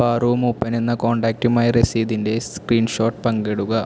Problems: constant background noise